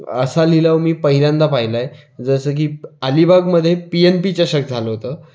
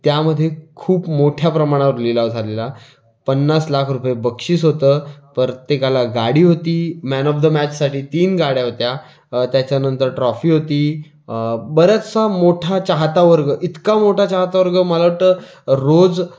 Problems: background sounds at intervals